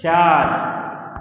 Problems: constant background noise, echo